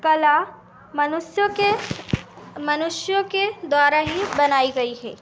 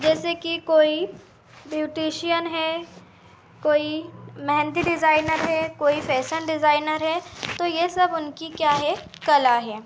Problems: constant background noise, continuous background conversations